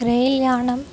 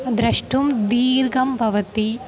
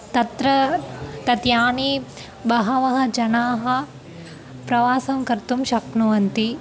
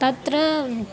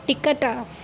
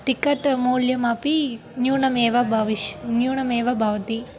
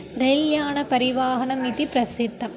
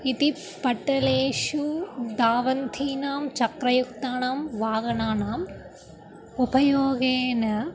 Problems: constant background noise